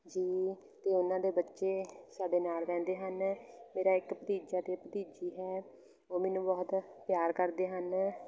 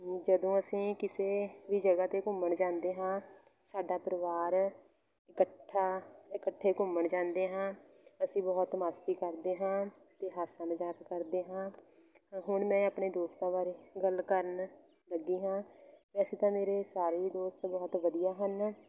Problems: background sounds at intervals, background conversations at intervals